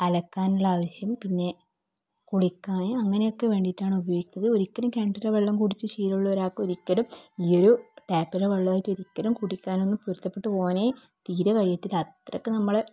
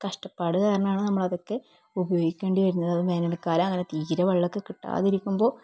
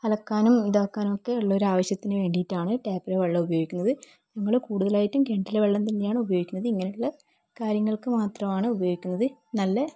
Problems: low volume